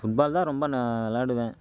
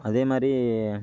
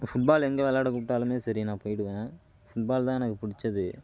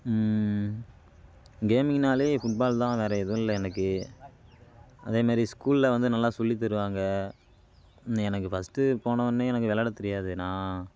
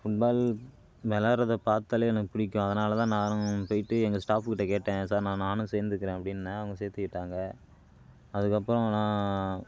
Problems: constant background noise